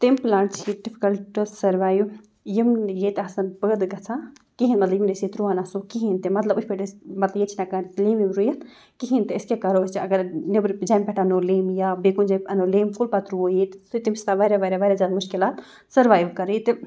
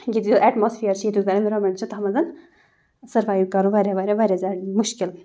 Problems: background sounds at intervals